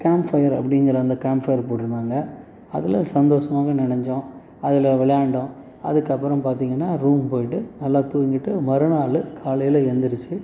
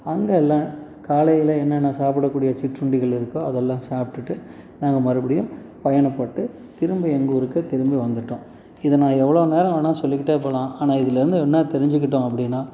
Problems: constant background noise